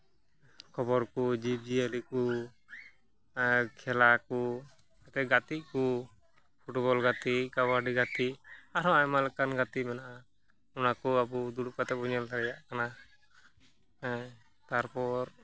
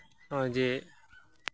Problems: background sounds at intervals, background conversations at intervals